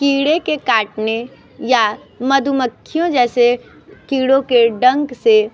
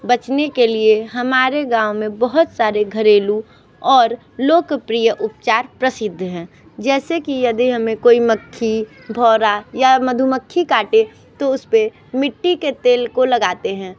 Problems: none marked